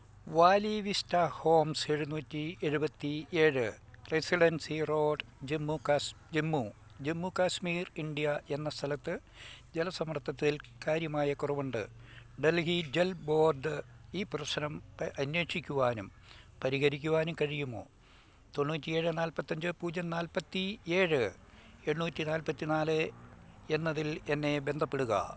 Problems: none marked